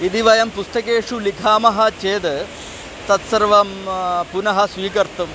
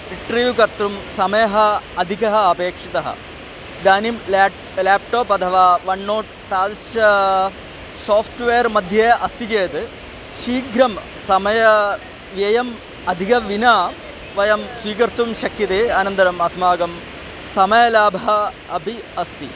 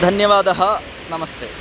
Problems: none marked